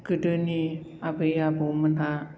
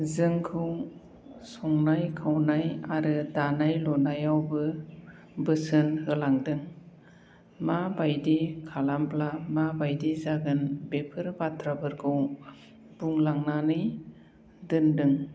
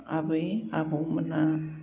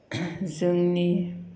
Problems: low volume